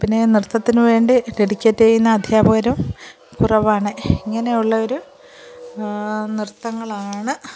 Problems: continuous background conversations